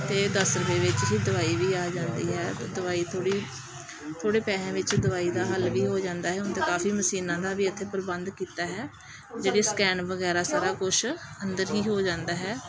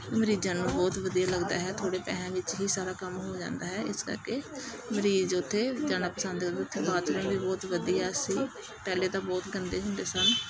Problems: constant background noise, background conversations at intervals